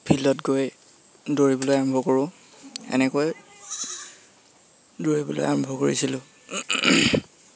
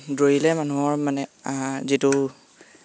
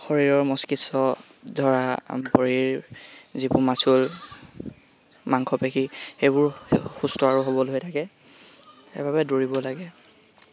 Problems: constant background noise